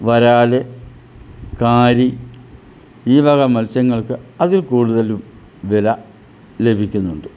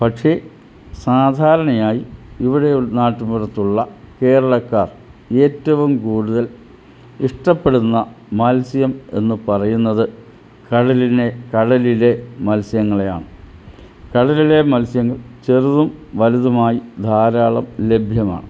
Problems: none marked